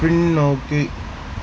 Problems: constant background noise